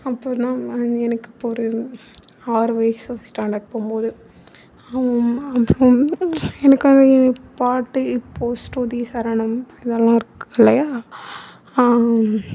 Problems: background sounds at intervals